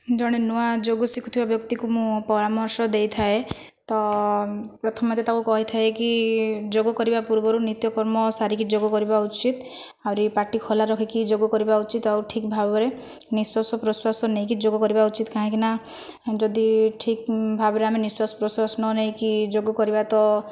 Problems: none marked